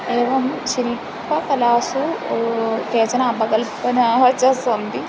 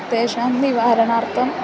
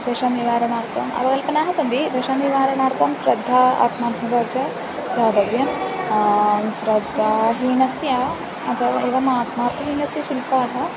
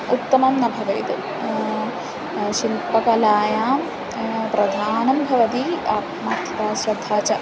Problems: none marked